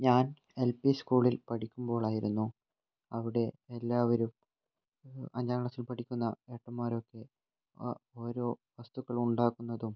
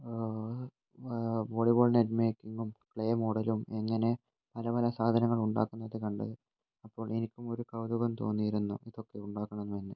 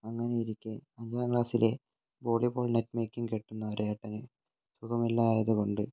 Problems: low volume